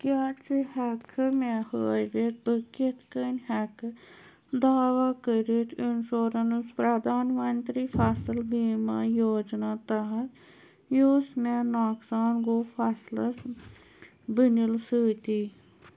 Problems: none marked